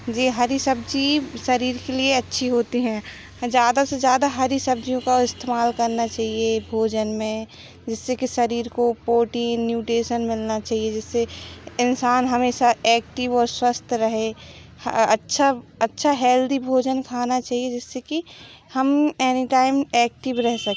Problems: background sounds at intervals